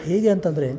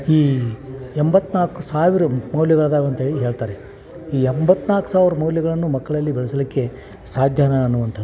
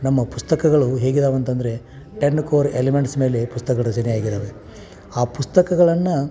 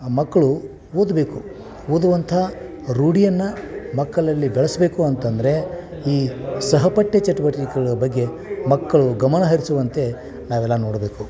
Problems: background sounds at intervals